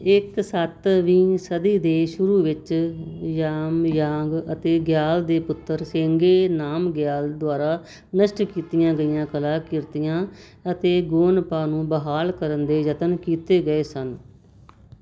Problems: constant background noise